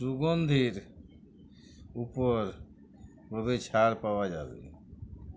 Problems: none marked